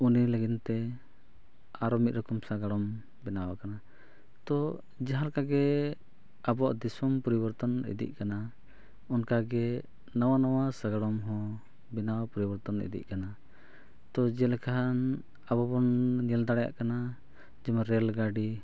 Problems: none marked